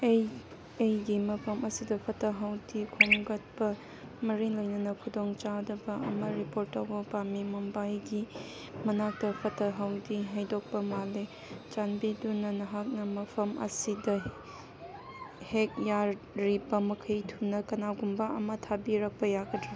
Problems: background conversations at intervals